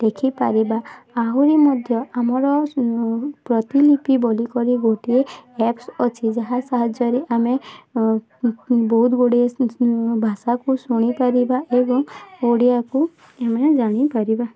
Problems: constant background noise